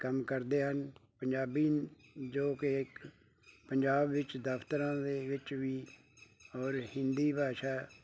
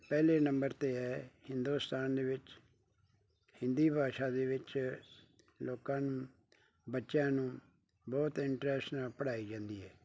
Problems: none marked